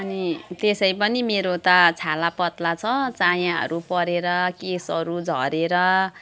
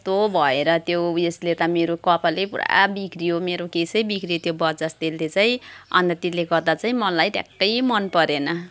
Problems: constant background noise